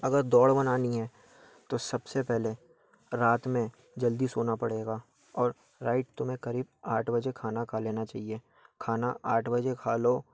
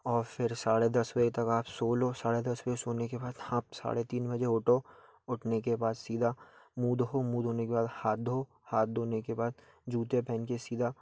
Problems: background sounds at intervals